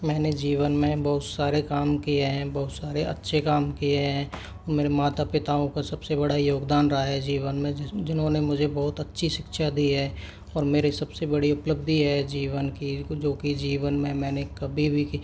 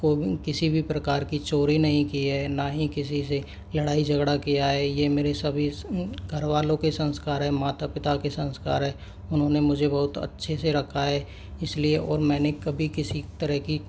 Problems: background sounds at intervals